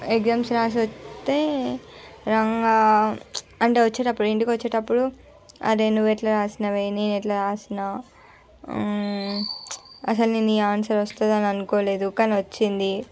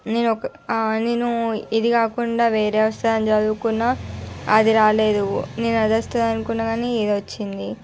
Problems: constant background noise, background conversations at intervals